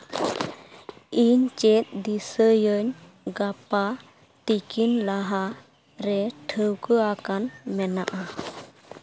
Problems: none marked